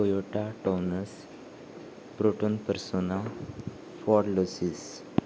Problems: none marked